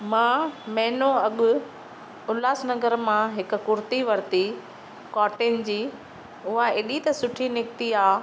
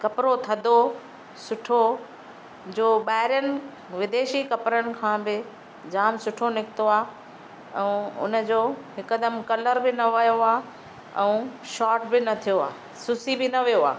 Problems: none marked